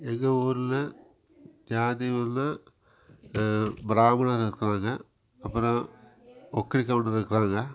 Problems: background sounds at intervals